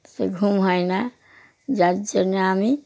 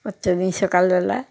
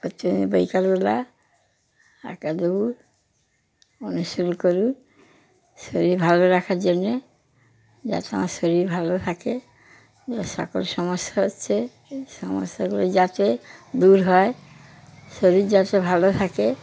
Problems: constant background noise